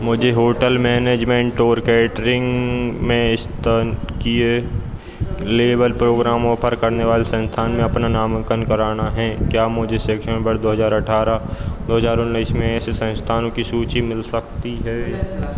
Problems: none marked